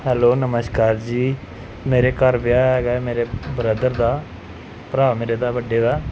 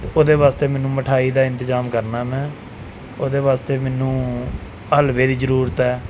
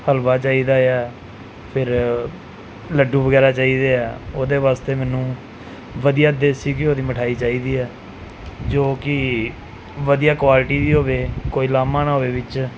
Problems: background sounds at intervals